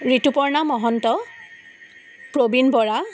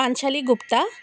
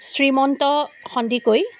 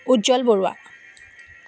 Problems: background sounds at intervals